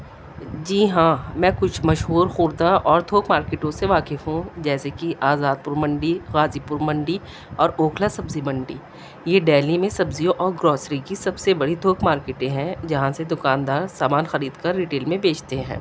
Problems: constant background noise